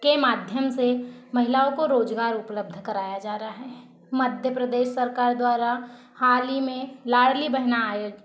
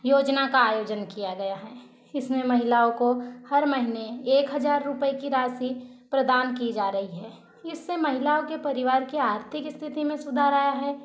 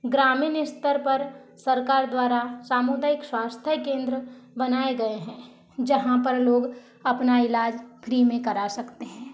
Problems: constant background noise